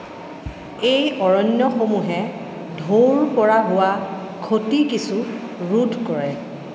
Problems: background sounds at intervals